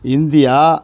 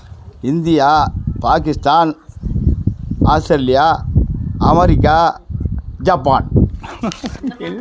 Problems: none marked